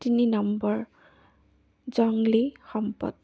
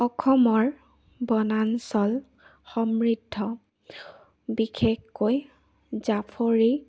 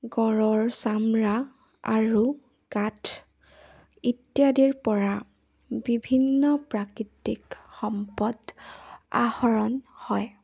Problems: none marked